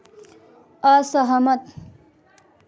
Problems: constant background noise, continuous background conversations